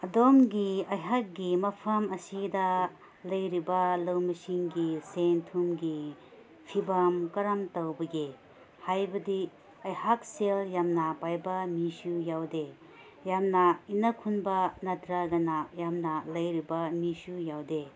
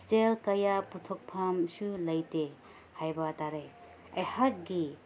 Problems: none marked